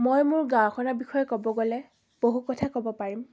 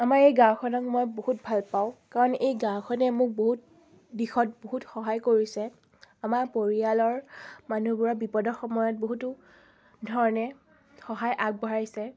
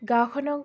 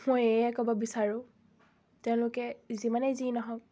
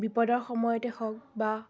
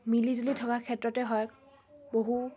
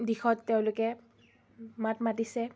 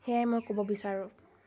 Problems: constant background noise